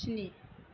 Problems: constant background noise